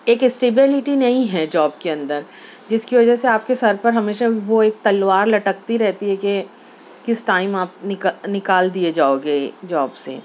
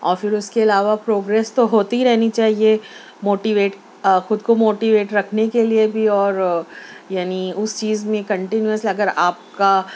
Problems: none marked